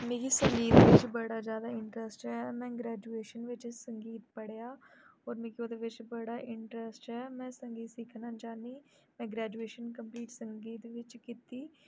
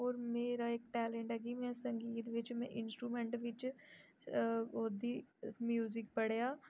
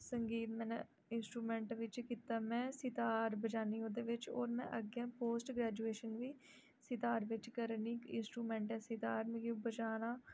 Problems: low volume